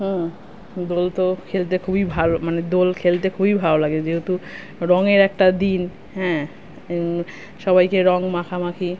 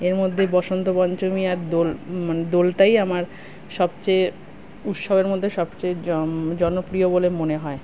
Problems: constant background noise